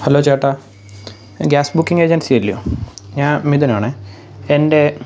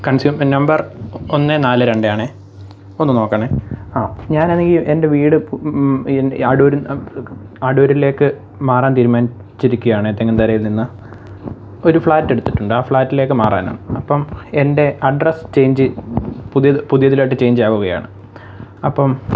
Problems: background sounds at intervals